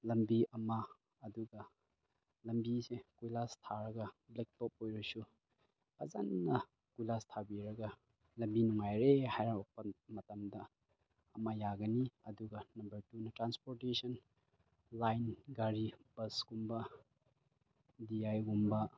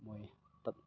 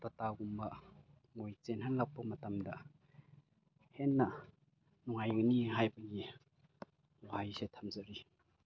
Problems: none marked